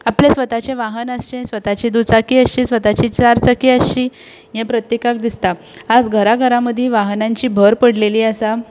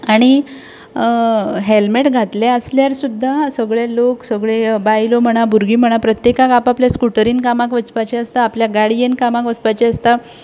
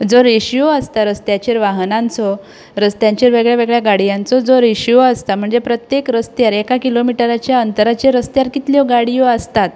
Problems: constant background noise